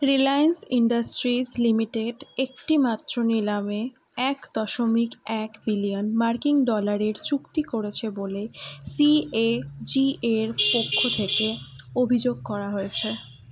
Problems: constant background noise